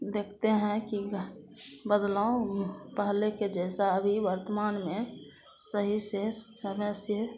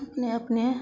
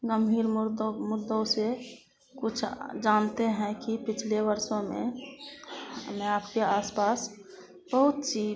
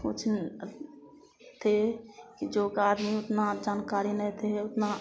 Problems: constant background noise